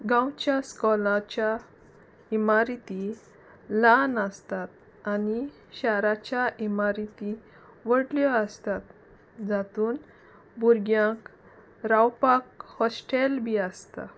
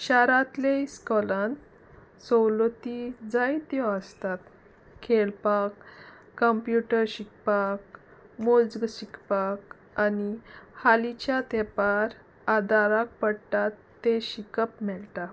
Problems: constant background noise, background conversations at intervals